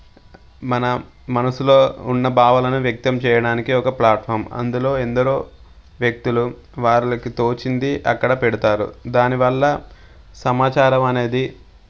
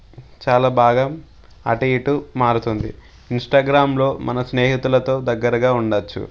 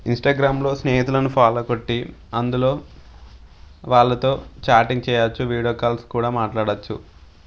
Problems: none marked